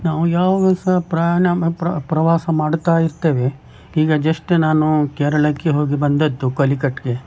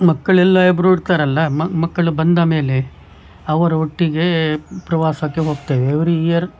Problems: background sounds at intervals